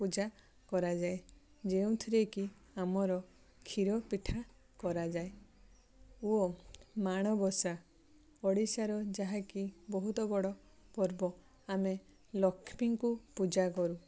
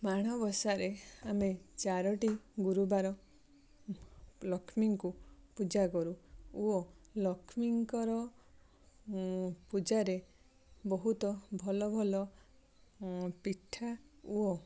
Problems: none marked